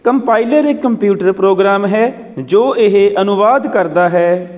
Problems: none marked